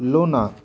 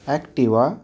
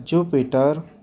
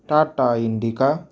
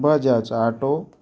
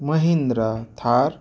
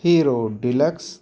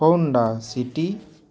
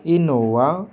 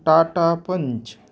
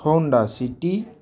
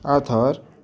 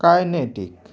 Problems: none marked